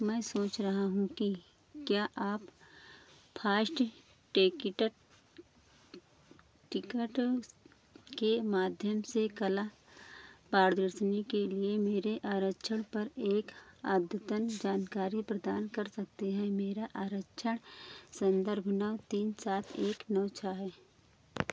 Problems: none marked